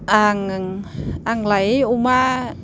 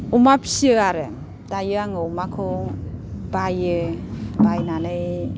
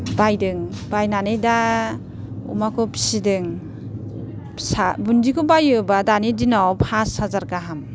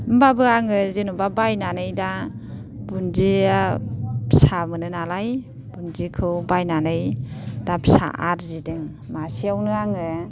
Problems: none marked